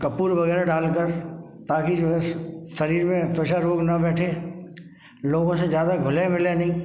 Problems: none marked